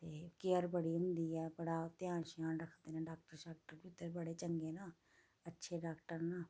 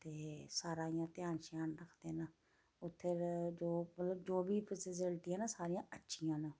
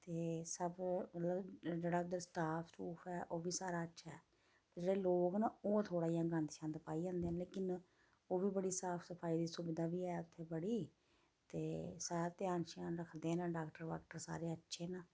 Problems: low volume